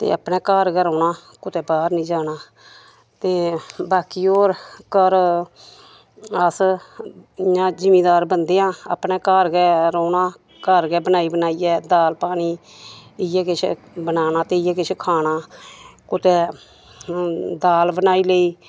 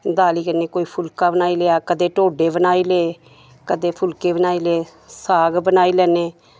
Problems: none marked